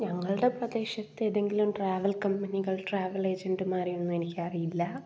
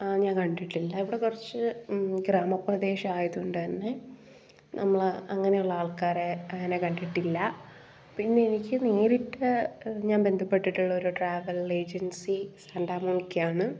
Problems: background sounds at intervals